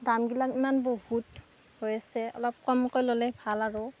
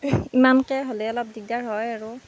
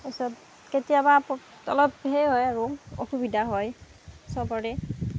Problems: constant background noise